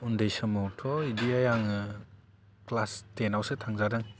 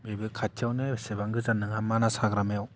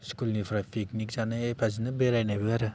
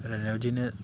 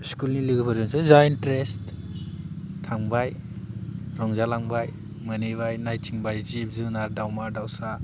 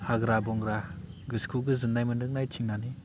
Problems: low volume